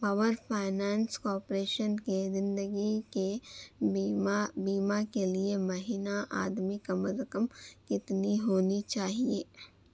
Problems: constant background noise, low volume